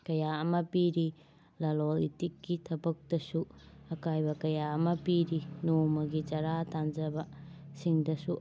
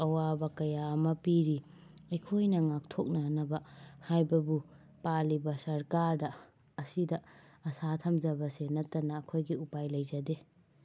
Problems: background sounds at intervals